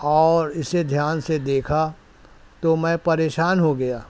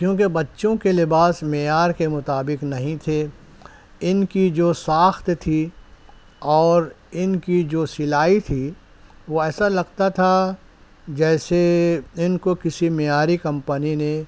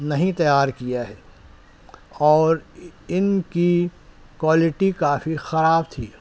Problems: constant background noise